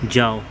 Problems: background sounds at intervals